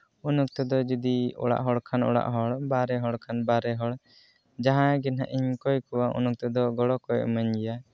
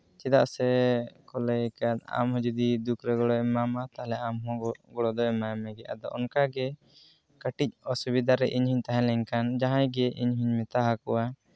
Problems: none marked